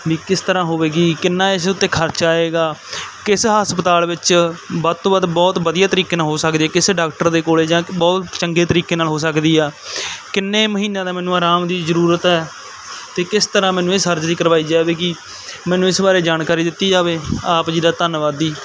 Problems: none marked